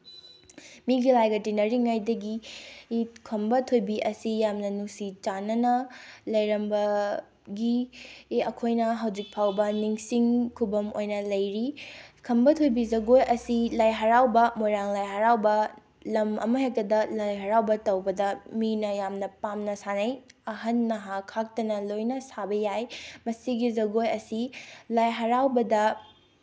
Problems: background sounds at intervals